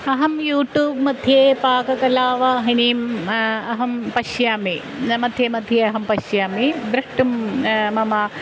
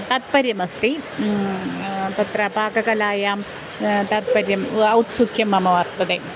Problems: constant background noise